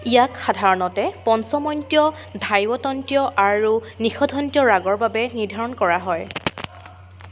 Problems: constant background noise